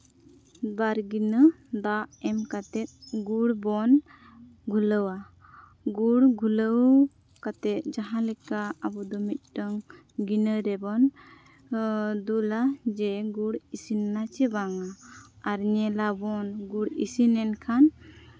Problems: none marked